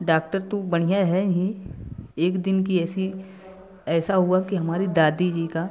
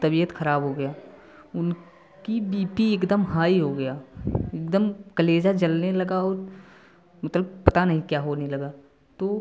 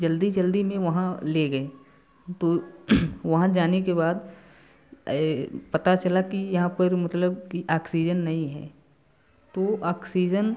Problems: constant background noise, continuous background conversations